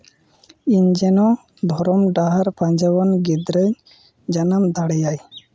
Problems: background sounds at intervals